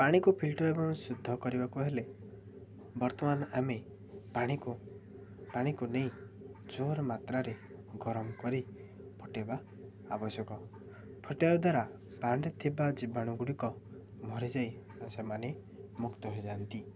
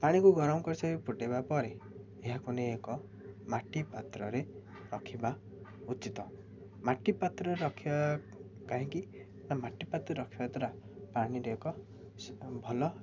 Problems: none marked